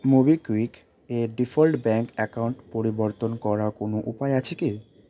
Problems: constant background noise